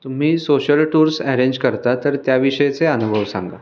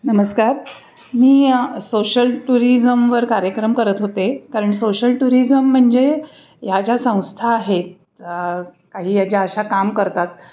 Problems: none marked